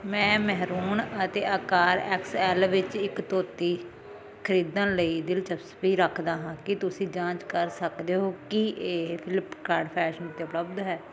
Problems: constant background noise